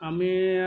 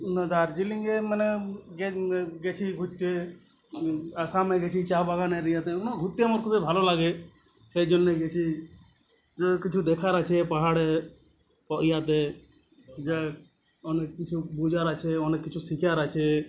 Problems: none marked